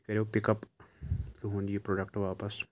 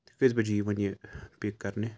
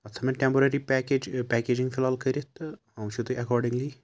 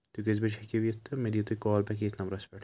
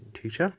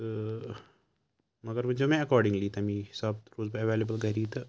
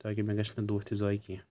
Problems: none marked